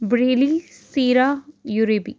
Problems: none marked